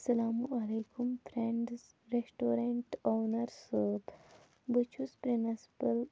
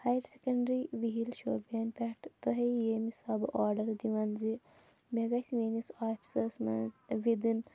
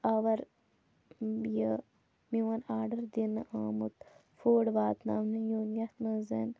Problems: constant background noise